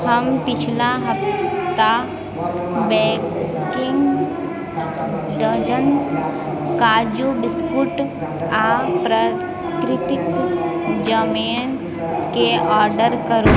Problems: background sounds at intervals